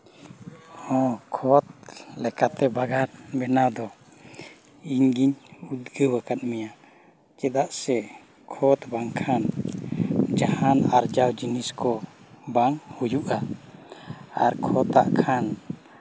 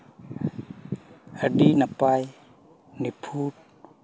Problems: background sounds at intervals